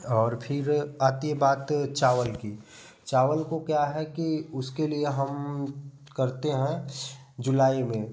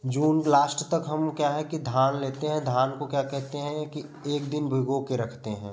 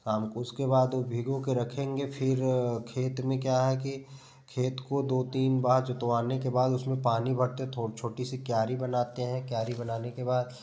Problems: none marked